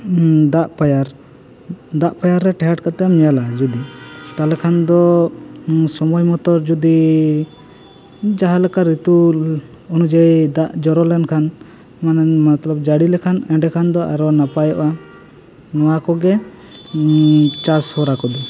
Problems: constant background noise, background conversations at intervals